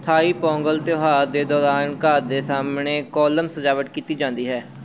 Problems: none marked